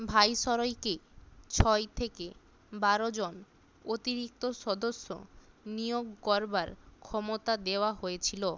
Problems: background sounds at intervals